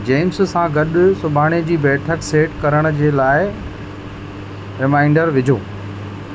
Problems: constant background noise, echo